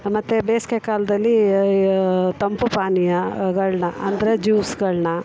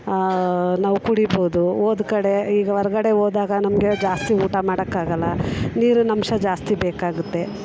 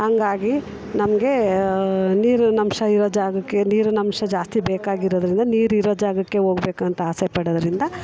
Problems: background conversations at intervals